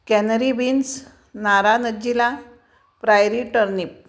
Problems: none marked